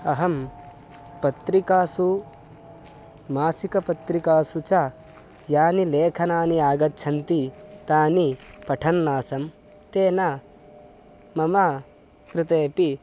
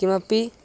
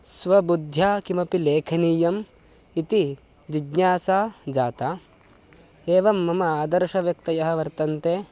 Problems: constant background noise